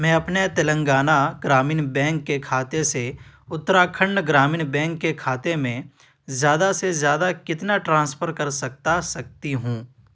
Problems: none marked